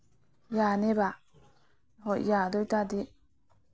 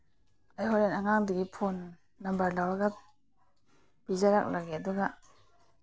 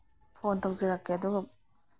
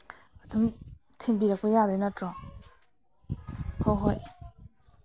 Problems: none marked